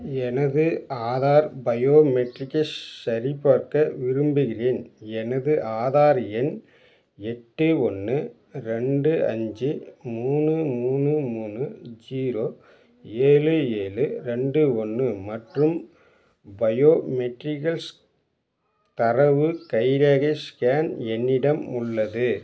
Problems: none marked